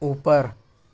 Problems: none marked